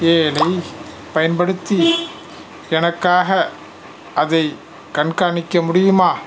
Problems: background sounds at intervals